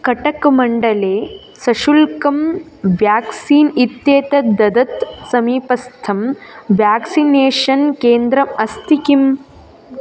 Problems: constant background noise, continuous background conversations